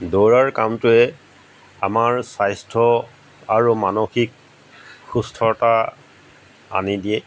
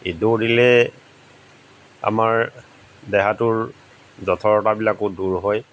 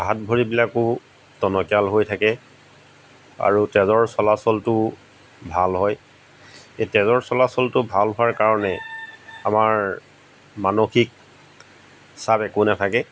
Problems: background sounds at intervals